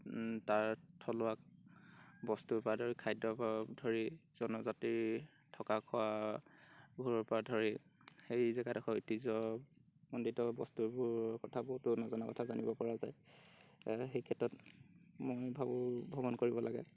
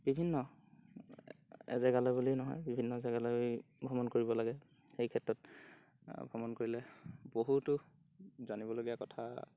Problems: none marked